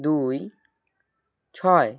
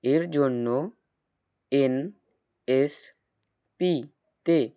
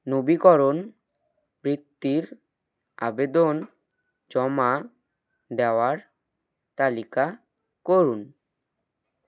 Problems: none marked